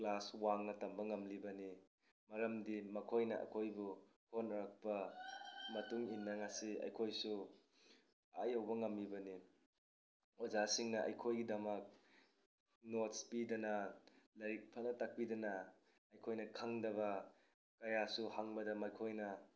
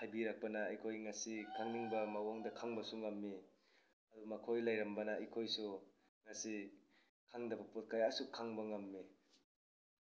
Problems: background sounds at intervals